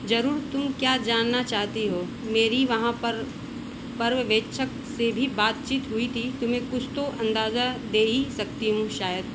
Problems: none marked